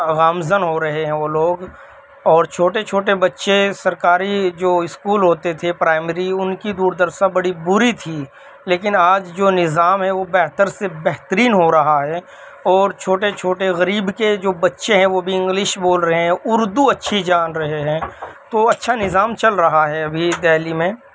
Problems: constant background noise